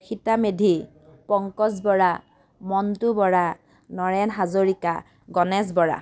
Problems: none marked